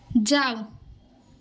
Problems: constant background noise